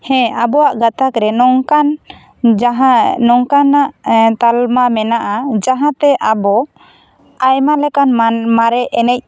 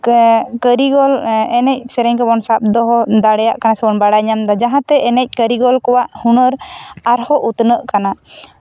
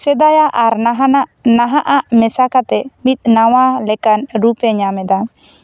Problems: none marked